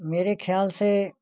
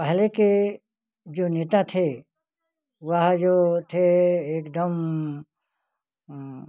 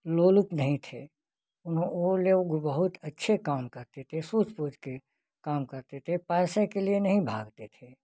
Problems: none marked